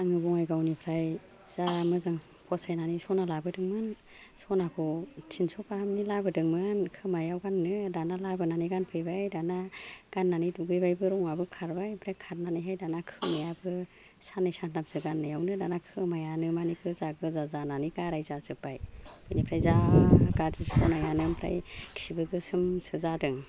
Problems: low volume